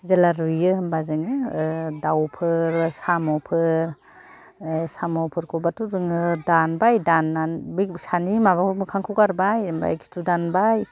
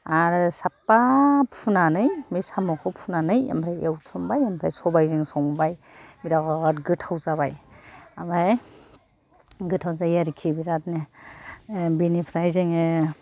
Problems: none marked